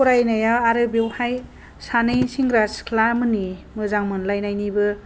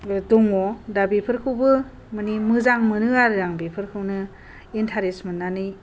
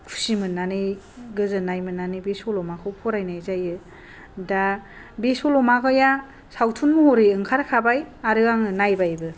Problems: low volume